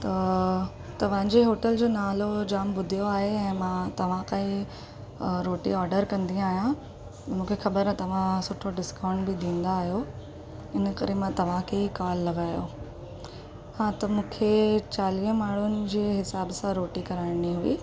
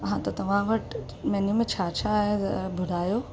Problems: constant background noise